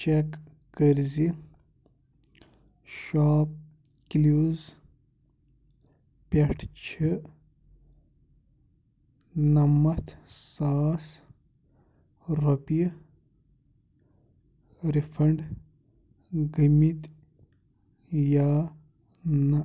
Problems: background sounds at intervals